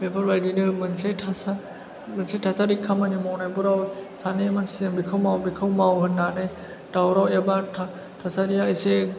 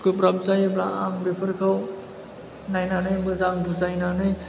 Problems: background sounds at intervals, background conversations at intervals